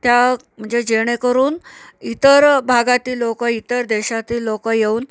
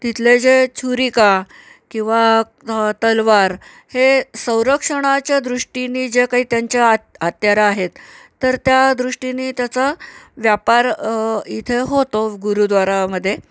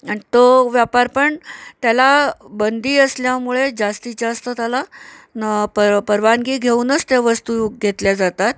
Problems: constant background noise